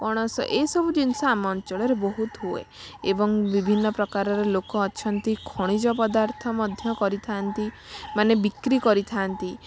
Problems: constant background noise